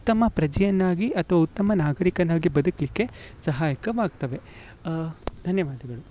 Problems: none marked